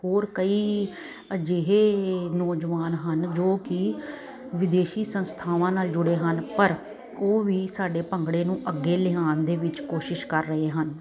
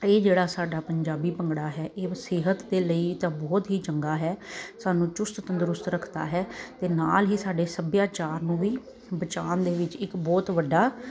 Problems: constant background noise